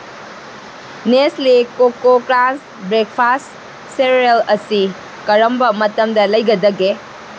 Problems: constant background noise